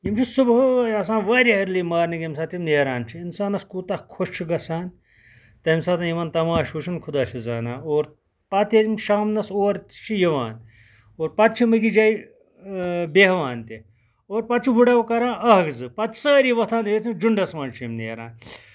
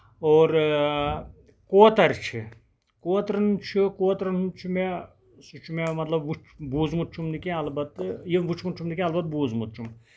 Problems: none marked